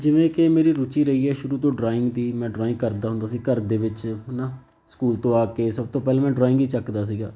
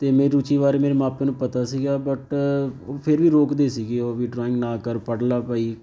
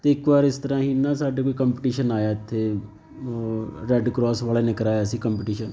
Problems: none marked